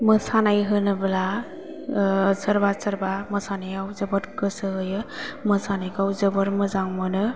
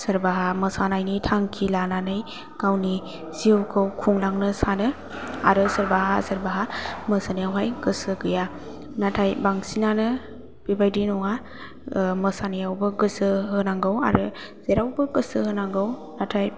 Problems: low volume